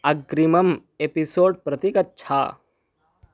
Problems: background sounds at intervals